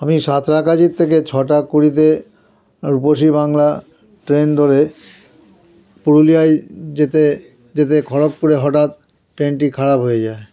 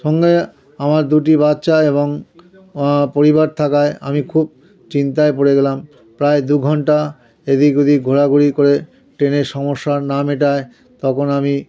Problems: continuous background conversations